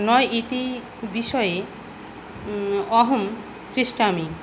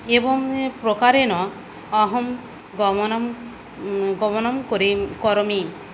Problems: none marked